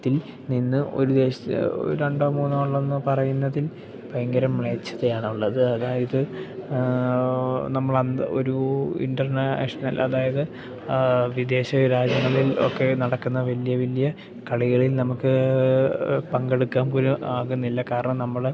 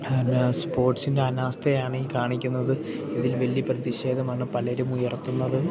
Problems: background sounds at intervals, background conversations at intervals